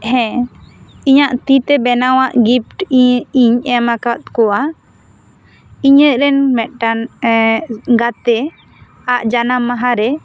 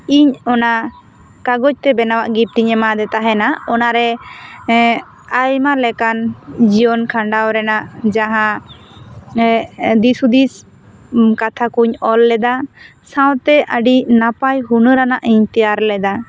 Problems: none marked